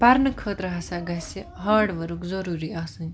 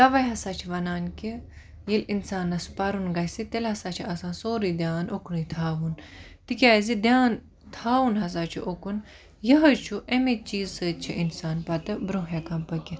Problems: none marked